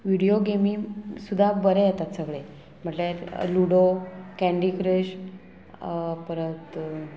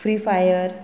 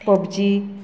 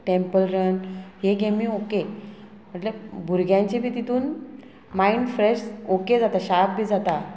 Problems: constant background noise